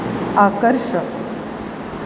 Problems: constant background noise